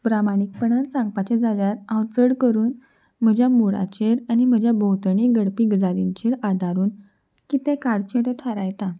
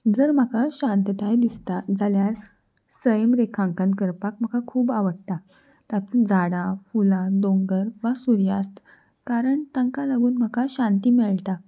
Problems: constant background noise